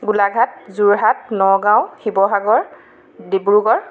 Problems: continuous background conversations